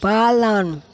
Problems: constant background noise